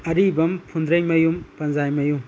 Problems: constant background noise